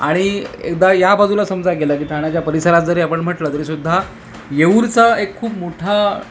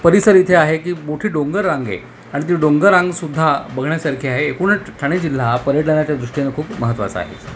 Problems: constant background noise